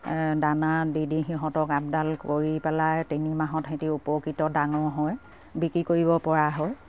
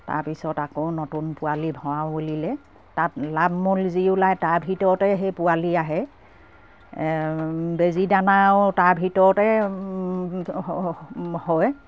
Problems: none marked